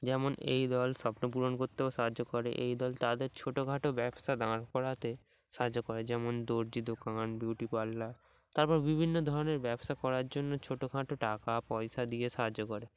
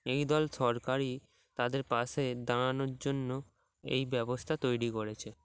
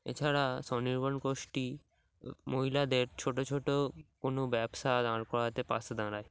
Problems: background sounds at intervals